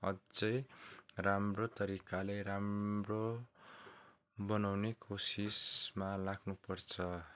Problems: background sounds at intervals